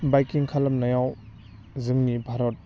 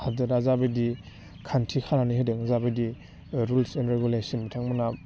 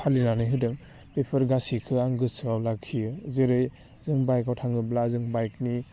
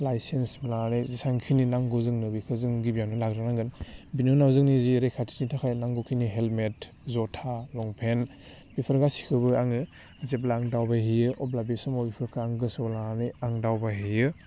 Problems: low volume